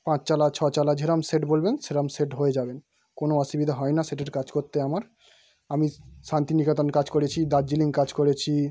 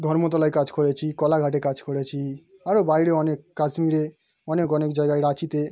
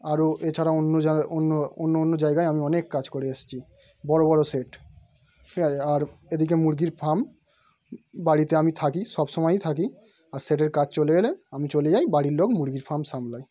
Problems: background sounds at intervals